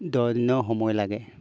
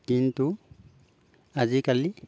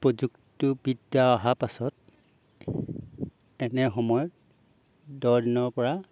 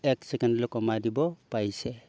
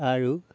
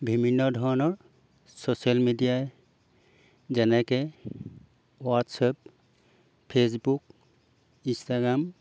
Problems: background sounds at intervals